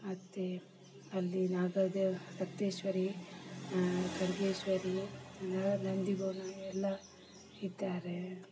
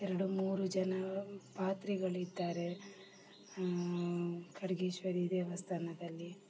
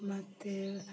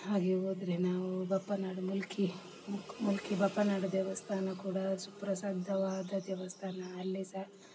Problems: low volume